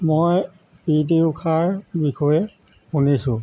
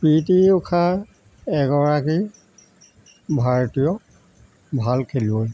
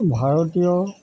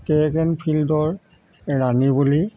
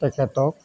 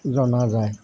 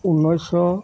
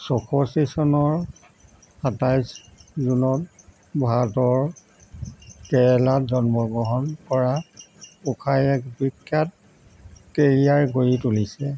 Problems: constant background noise